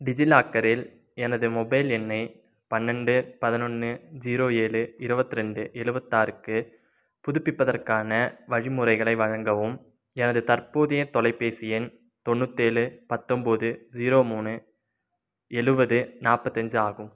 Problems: none marked